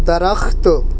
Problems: none marked